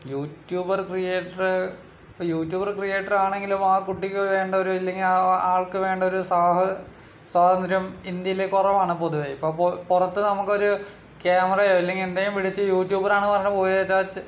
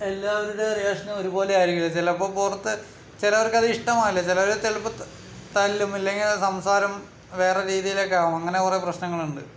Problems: none marked